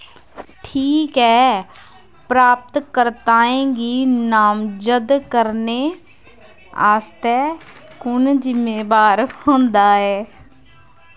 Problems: none marked